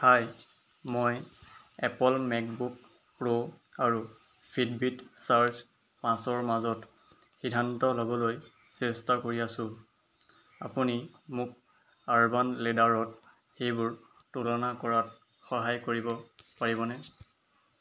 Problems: background sounds at intervals